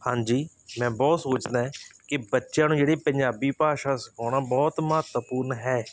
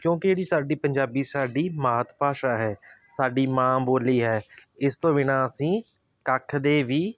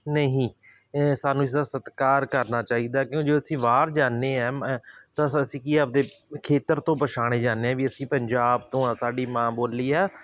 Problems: constant background noise